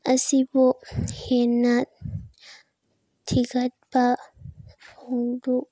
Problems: none marked